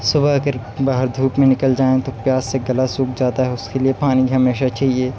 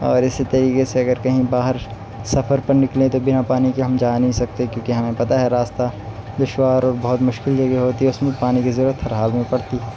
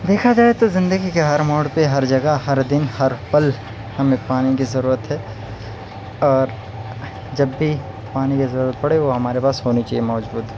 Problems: none marked